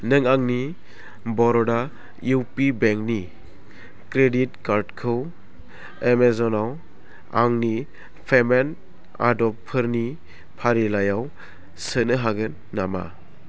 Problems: constant background noise